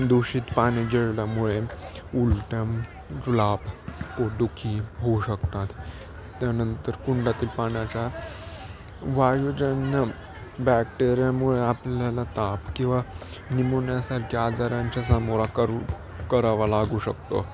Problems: constant background noise